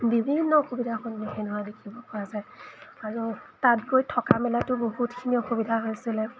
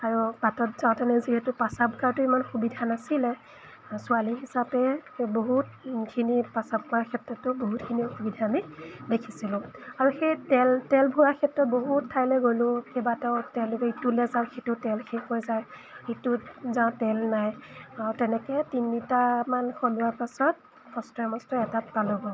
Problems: background sounds at intervals